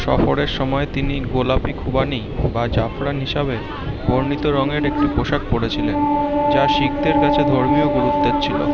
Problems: constant background noise, continuous background conversations